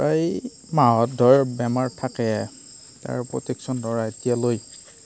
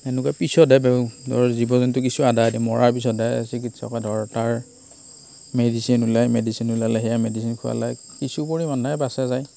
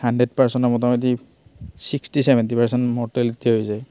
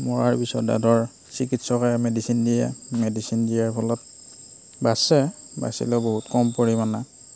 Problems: constant background noise